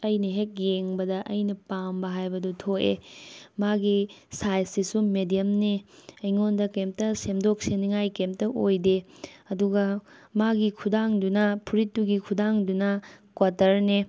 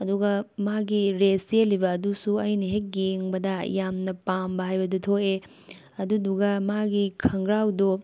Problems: background conversations at intervals